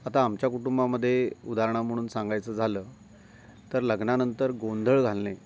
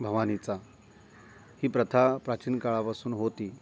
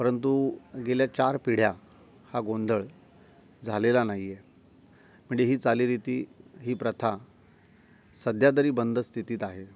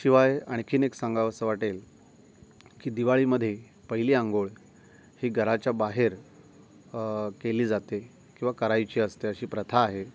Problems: constant background noise